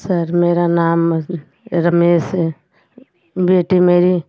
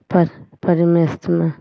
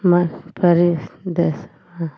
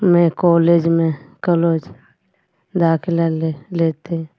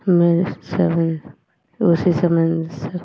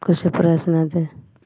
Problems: none marked